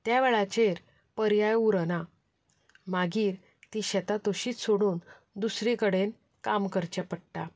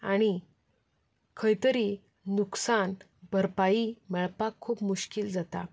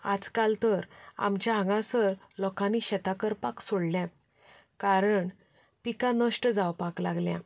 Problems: background conversations at intervals